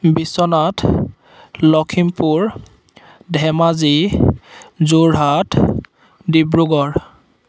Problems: none marked